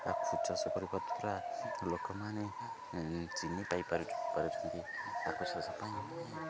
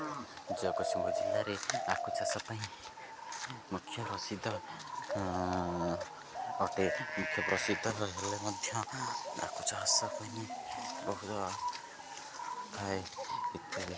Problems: constant background noise